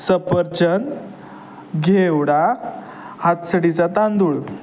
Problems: none marked